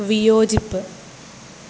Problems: constant background noise